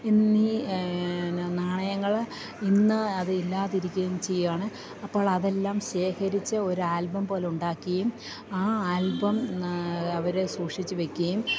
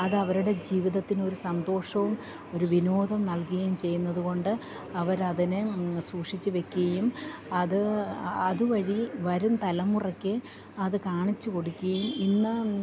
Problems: none marked